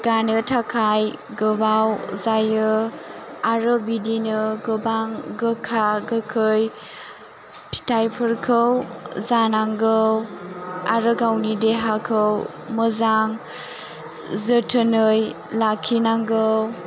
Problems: none marked